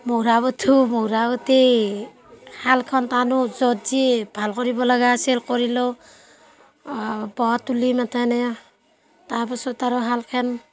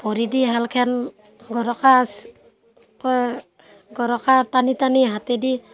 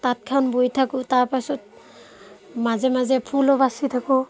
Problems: constant background noise, background conversations at intervals